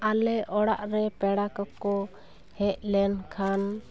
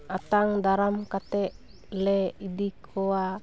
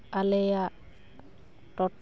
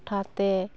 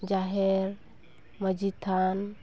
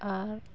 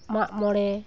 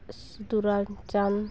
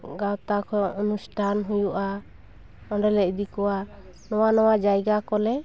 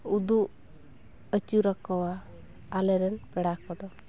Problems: background sounds at intervals